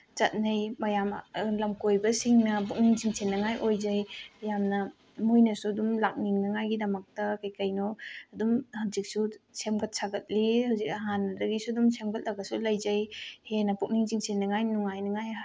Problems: none marked